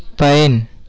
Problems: constant background noise